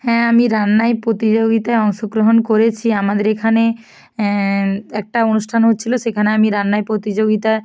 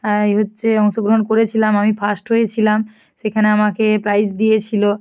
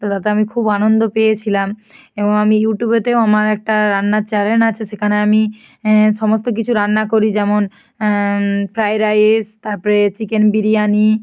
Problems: none marked